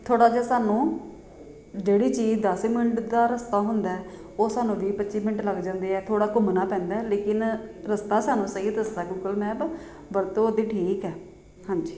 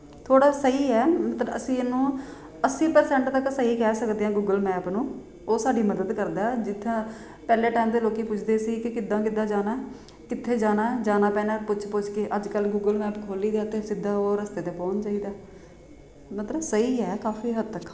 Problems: constant background noise